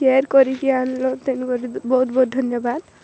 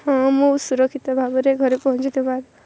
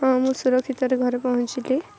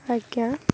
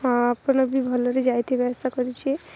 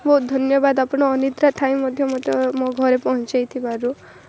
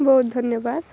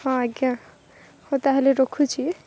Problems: constant background noise